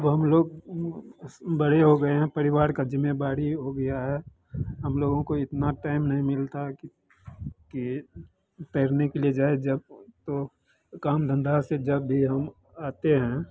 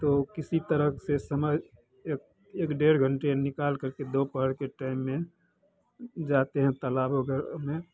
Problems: constant background noise